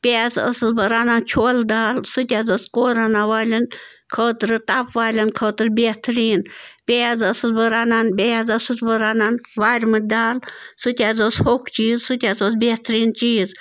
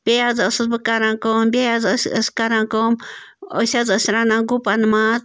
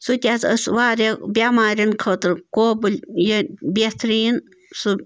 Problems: none marked